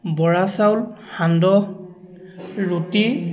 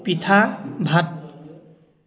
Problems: constant background noise, background conversations at intervals